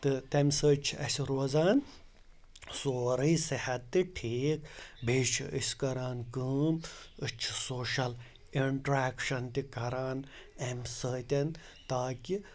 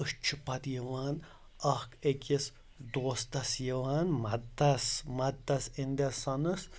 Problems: background sounds at intervals